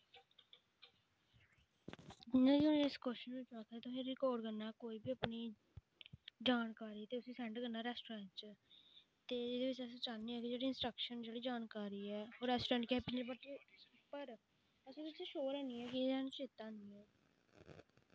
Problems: background sounds at intervals, low volume